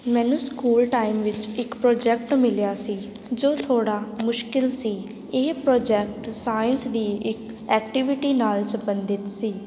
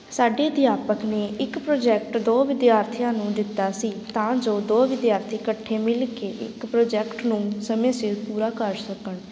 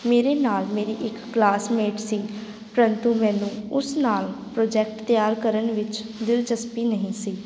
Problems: constant background noise